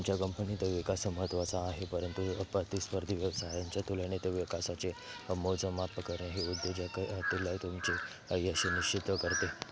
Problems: constant background noise, continuous background conversations